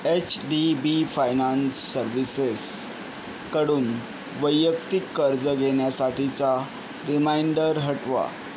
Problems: constant background noise